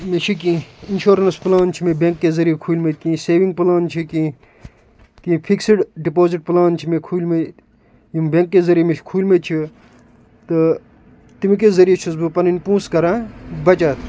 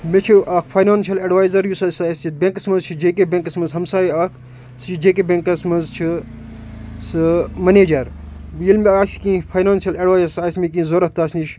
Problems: constant background noise